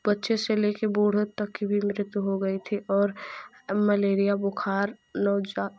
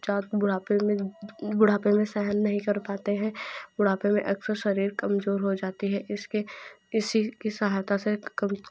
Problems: none marked